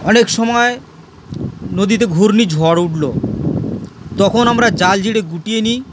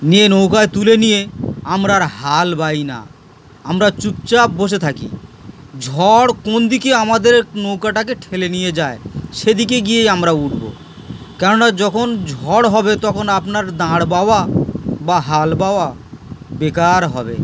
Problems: constant background noise